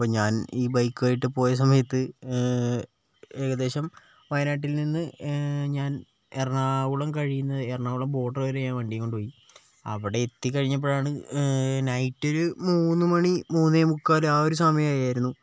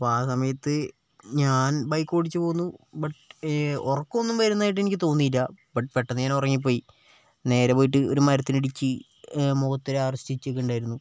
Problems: none marked